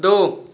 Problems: constant background noise